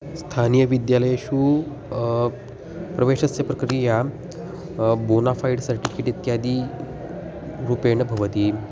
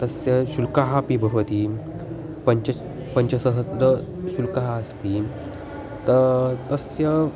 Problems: constant background noise